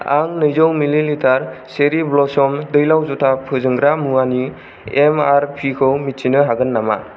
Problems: none marked